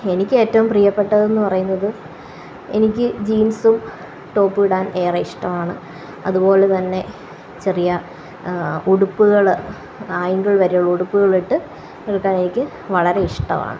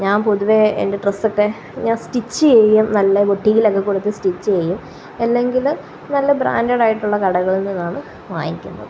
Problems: constant background noise